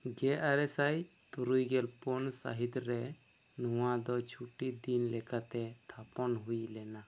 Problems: none marked